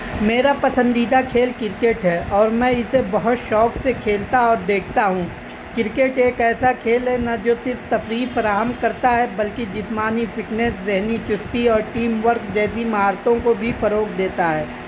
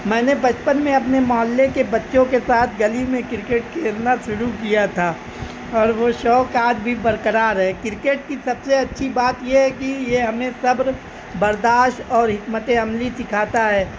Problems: constant background noise